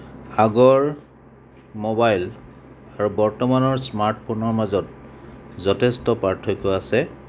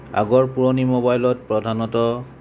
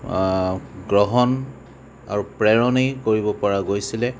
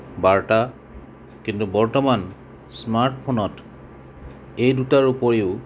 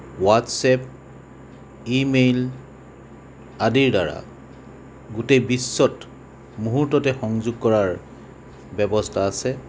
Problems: constant background noise